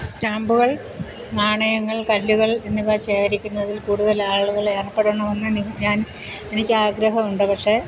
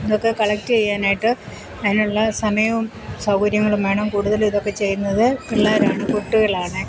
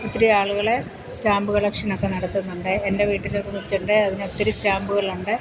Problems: constant background noise